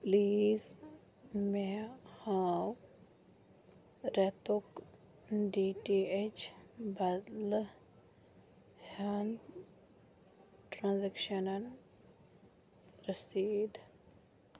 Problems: low volume